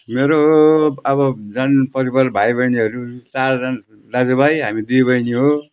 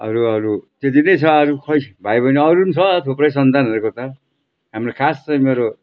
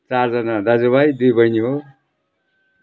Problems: background sounds at intervals